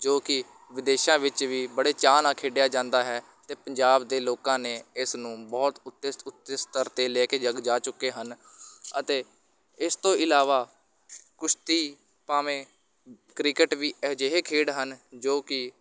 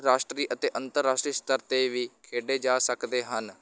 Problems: constant background noise